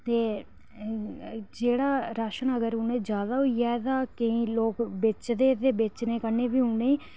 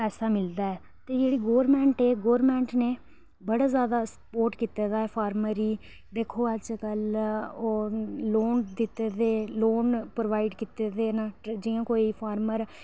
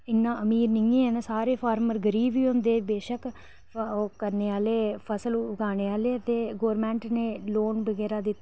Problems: low volume